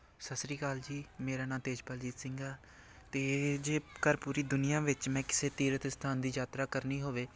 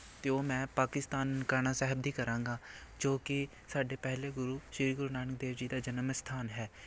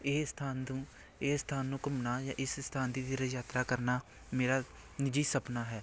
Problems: background sounds at intervals, background conversations at intervals